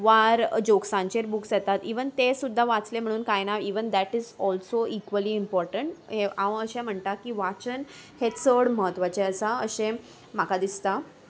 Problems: none marked